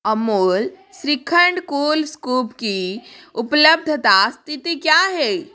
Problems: background sounds at intervals, background conversations at intervals